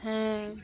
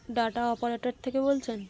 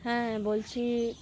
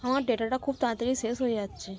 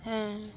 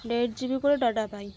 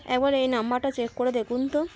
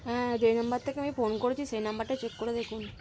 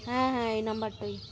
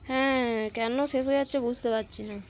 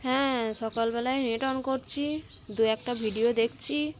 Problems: constant background noise, continuous background conversations